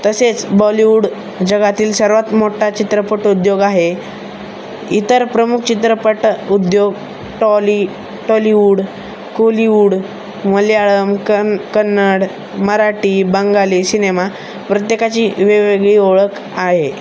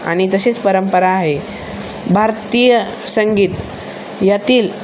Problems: constant background noise